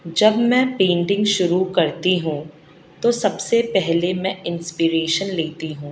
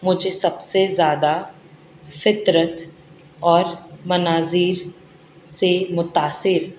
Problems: constant background noise